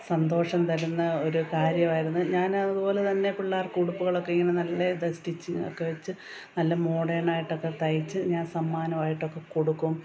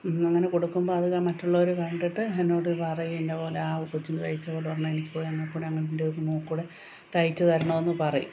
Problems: constant background noise